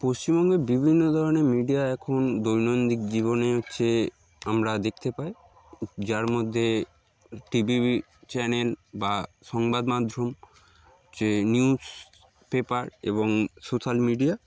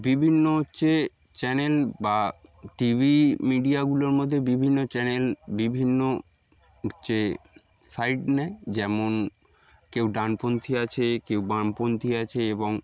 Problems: background sounds at intervals